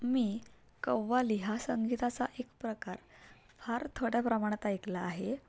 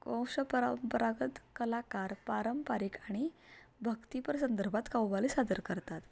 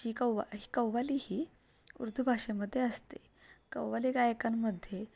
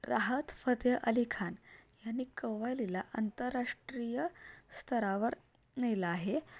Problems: none marked